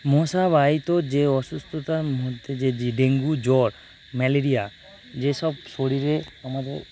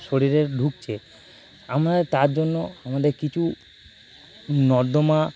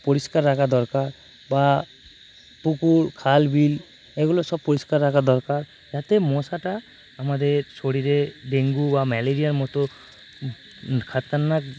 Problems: constant background noise